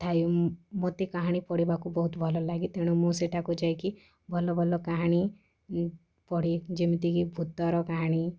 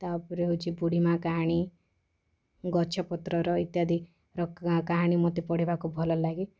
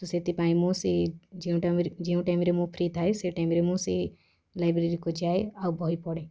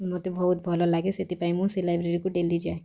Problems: background conversations at intervals